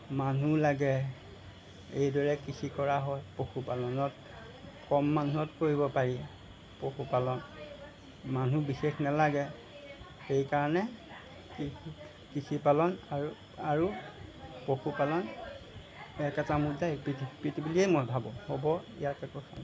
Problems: background sounds at intervals